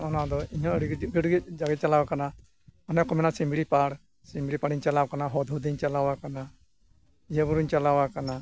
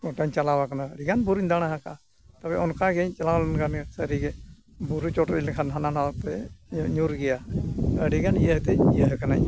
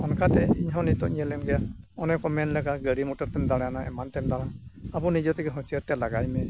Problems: background sounds at intervals